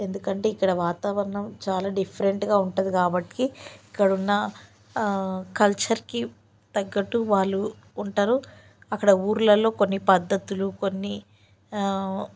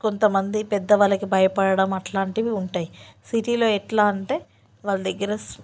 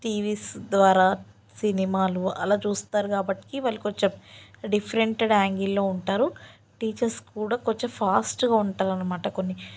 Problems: none marked